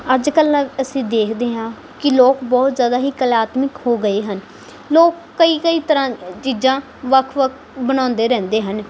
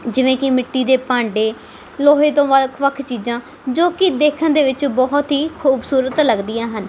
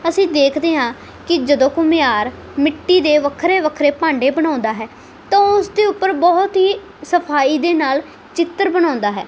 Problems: background sounds at intervals